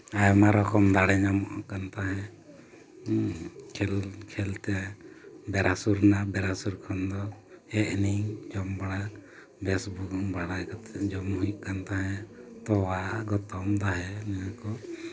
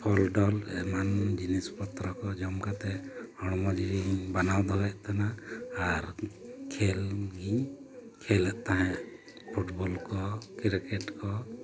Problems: constant background noise